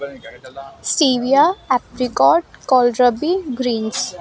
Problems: background sounds at intervals